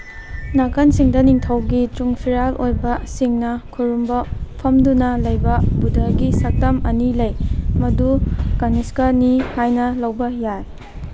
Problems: background sounds at intervals